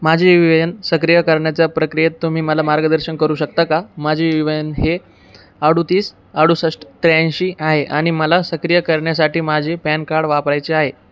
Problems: none marked